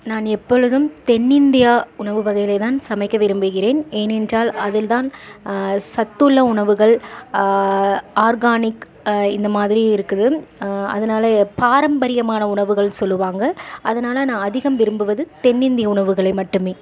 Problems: none marked